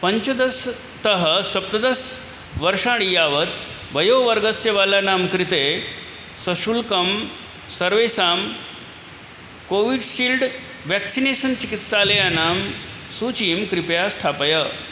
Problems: none marked